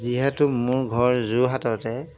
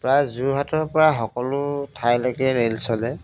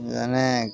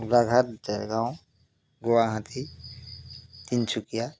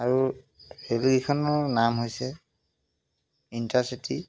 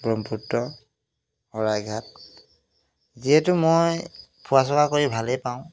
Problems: background sounds at intervals